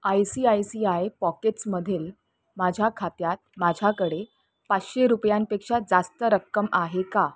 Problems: none marked